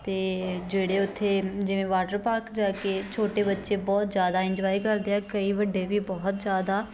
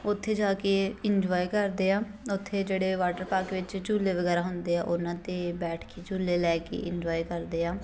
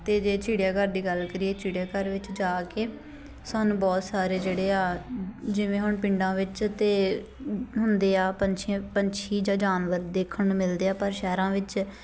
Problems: constant background noise, continuous background conversations